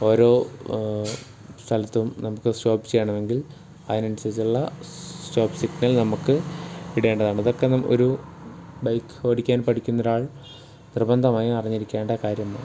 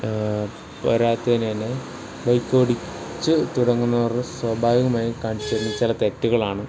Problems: background sounds at intervals